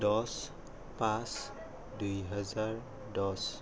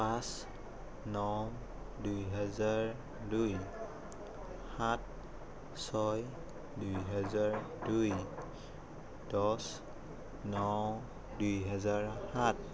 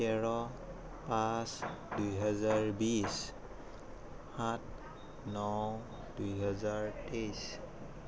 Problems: none marked